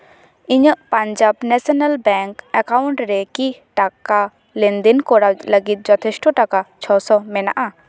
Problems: none marked